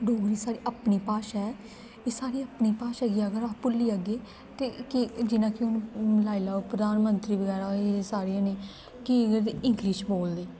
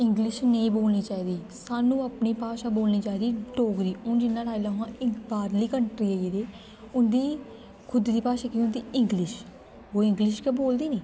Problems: constant background noise